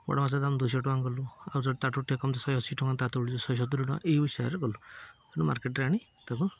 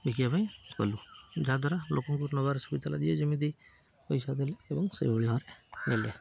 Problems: none marked